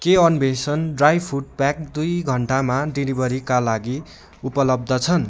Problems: constant background noise